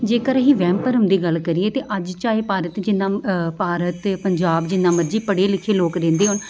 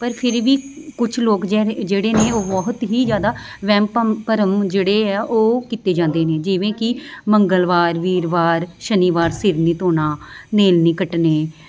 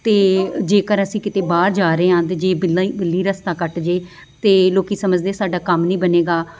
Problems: background sounds at intervals